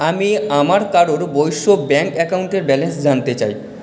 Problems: echo